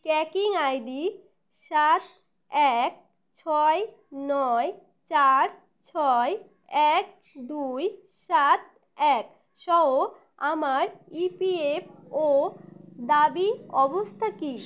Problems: constant background noise